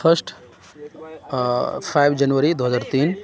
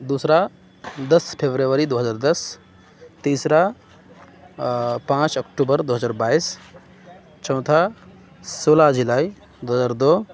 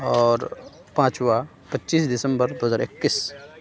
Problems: constant background noise, continuous background conversations